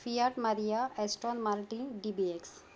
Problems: background sounds at intervals